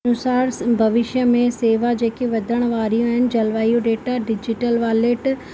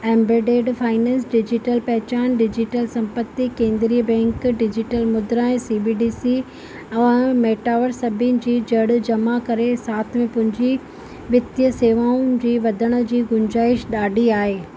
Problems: constant background noise